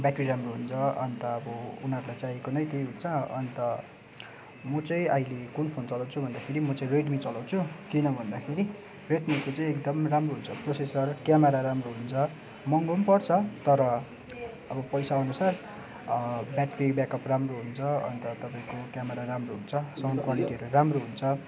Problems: constant background noise